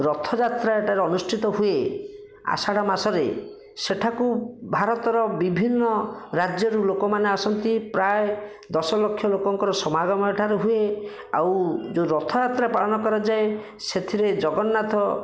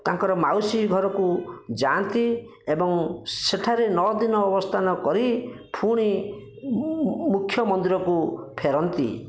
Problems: none marked